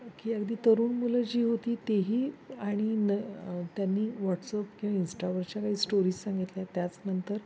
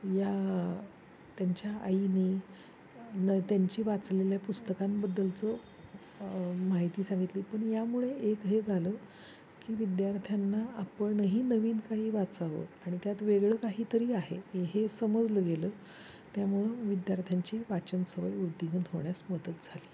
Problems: constant background noise